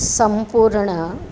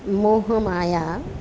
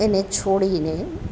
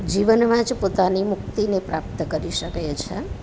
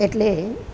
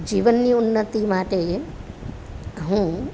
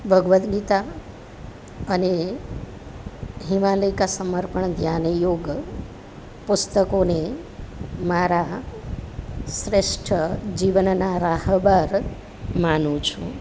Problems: constant background noise